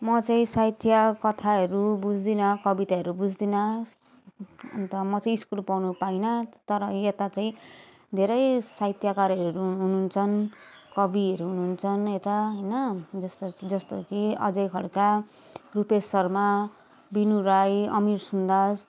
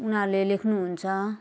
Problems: background sounds at intervals, continuous background conversations